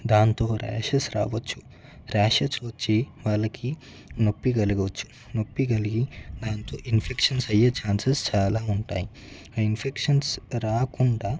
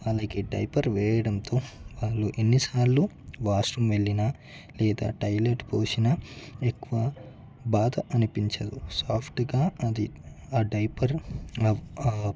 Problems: background sounds at intervals, background conversations at intervals